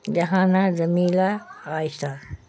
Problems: constant background noise